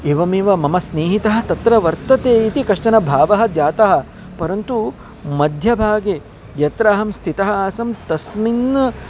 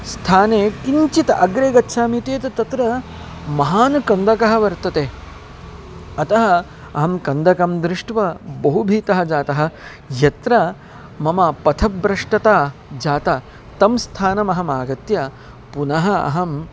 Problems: constant background noise, background conversations at intervals